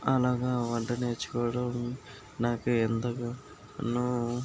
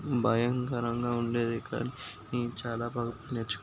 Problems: background sounds at intervals